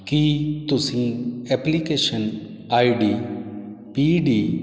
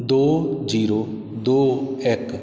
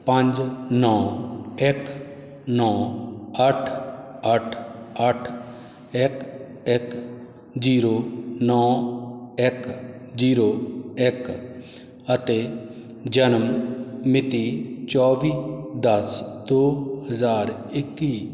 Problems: none marked